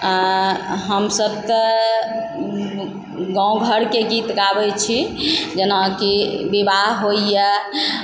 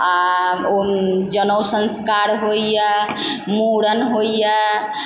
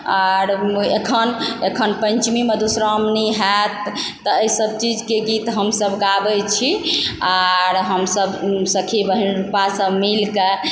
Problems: background sounds at intervals